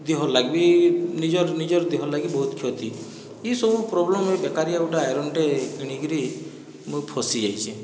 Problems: background sounds at intervals, background conversations at intervals